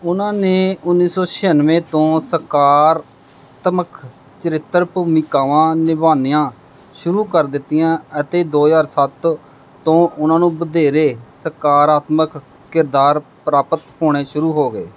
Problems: none marked